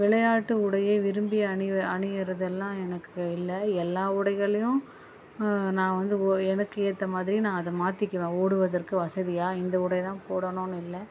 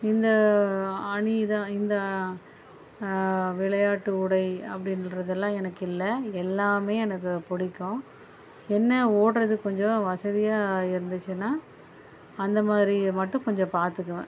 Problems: background sounds at intervals